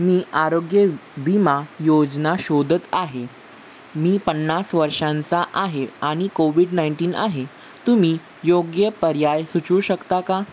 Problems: background sounds at intervals